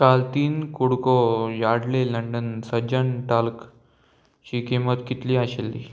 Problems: constant background noise